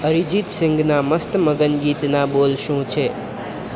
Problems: constant background noise